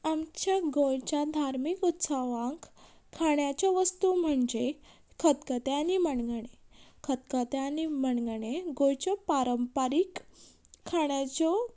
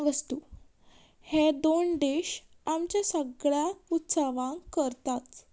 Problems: background sounds at intervals